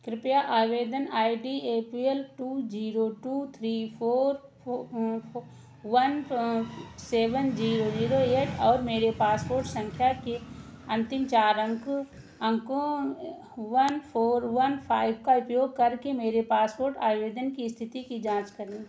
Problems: constant background noise